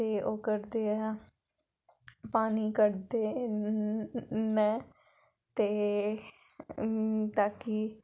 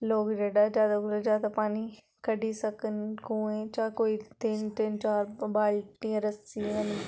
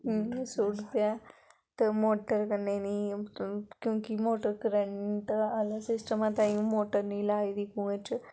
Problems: background sounds at intervals, background conversations at intervals